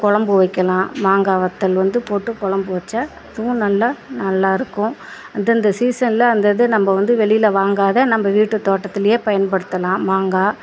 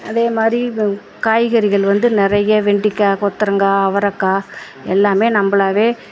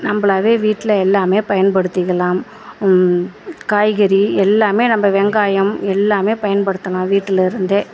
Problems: background sounds at intervals